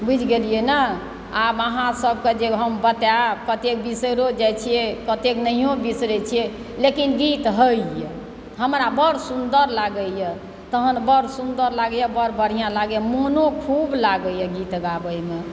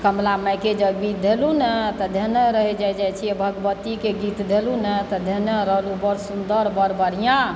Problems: background sounds at intervals